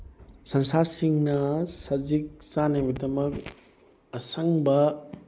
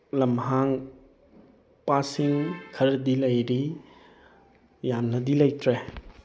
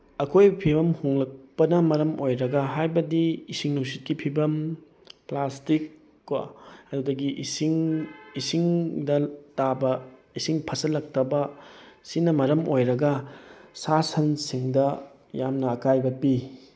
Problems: none marked